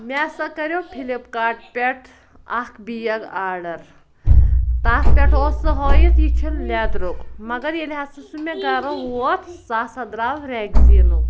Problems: constant background noise, background conversations at intervals